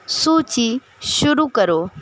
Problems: constant background noise